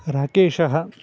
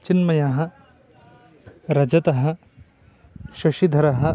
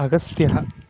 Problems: background sounds at intervals